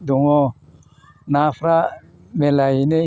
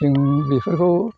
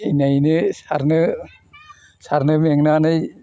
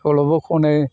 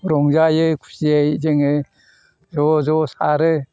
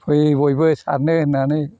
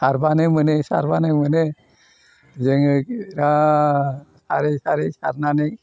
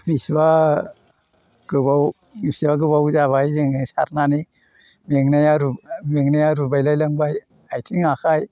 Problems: none marked